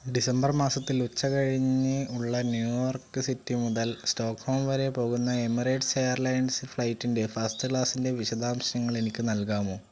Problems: constant background noise